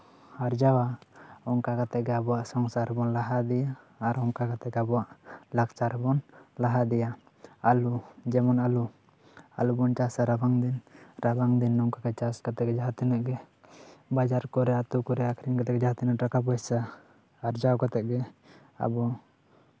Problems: none marked